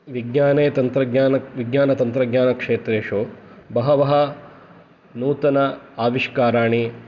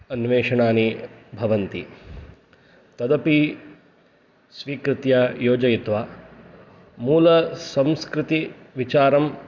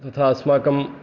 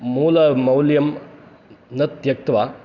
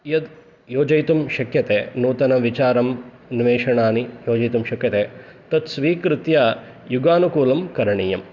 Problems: none marked